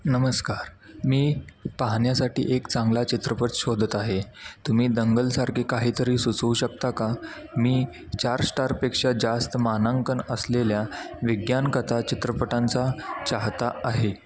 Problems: background sounds at intervals, background conversations at intervals